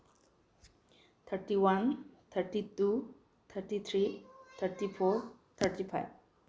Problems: low volume